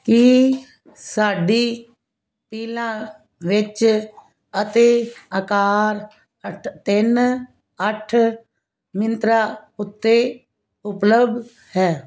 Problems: none marked